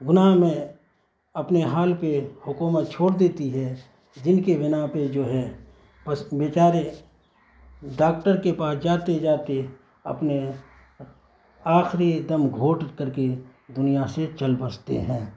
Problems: constant background noise